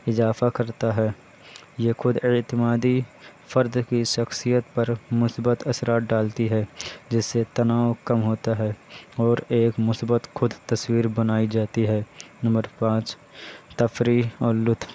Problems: constant background noise